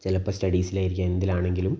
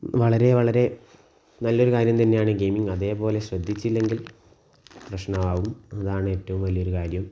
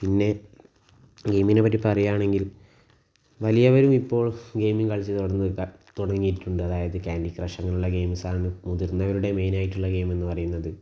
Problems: low volume